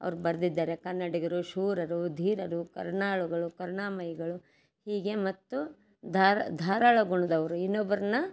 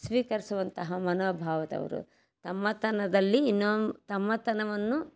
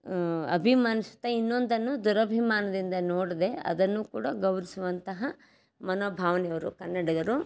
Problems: none marked